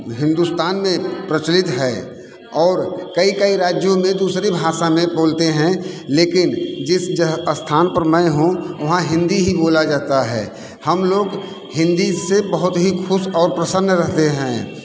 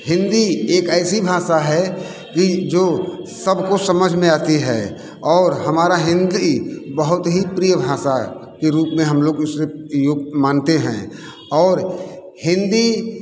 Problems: constant background noise, continuous background conversations